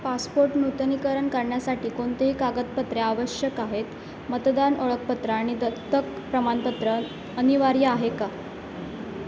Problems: constant background noise